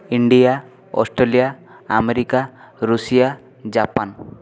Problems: continuous background conversations